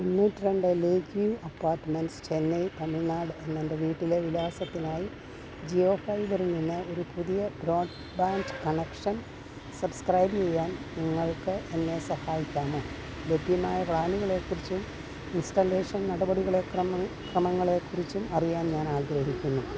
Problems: constant background noise, low volume